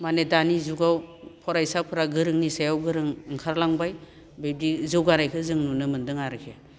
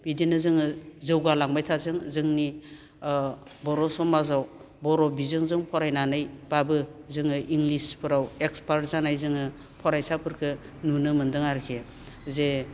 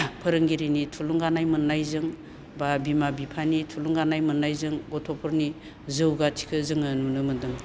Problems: none marked